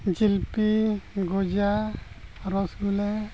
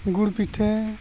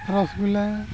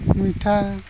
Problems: background sounds at intervals